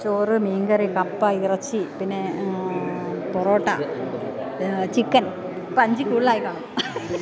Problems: constant background noise, background conversations at intervals, low volume